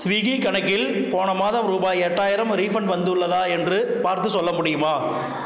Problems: continuous background conversations